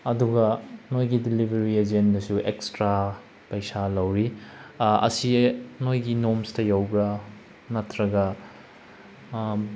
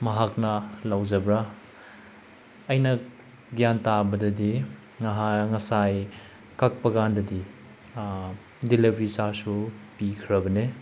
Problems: none marked